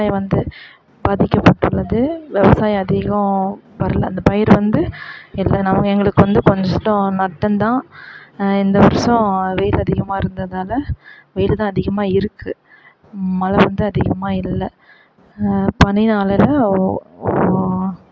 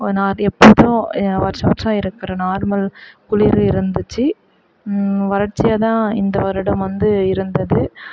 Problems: background sounds at intervals